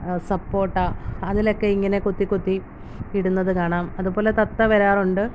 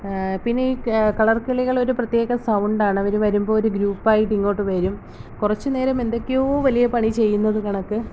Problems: constant background noise